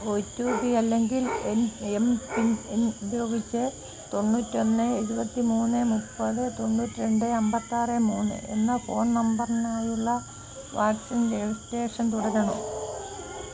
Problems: constant background noise, low volume